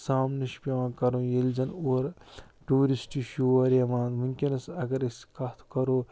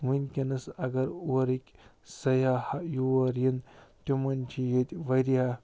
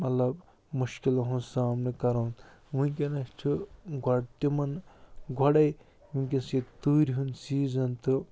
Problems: low volume